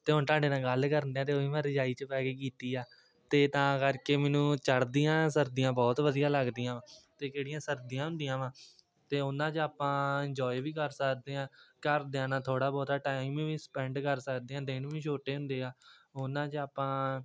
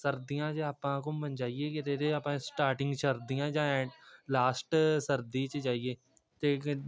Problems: background sounds at intervals, continuous background conversations